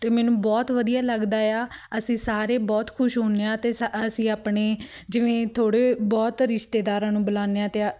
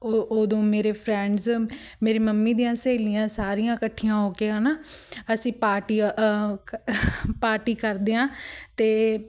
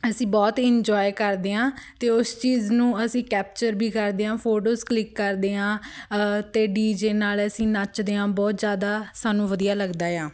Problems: background sounds at intervals